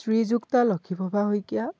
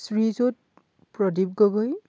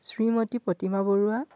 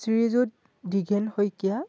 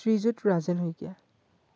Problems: background sounds at intervals